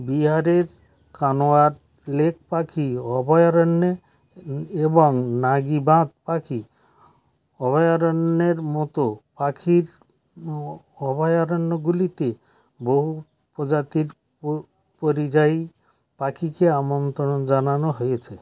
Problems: background sounds at intervals